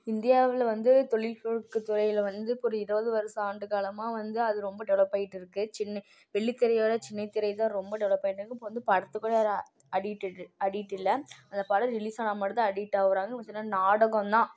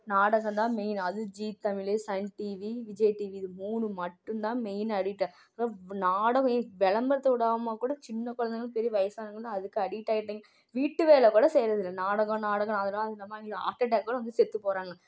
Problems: none marked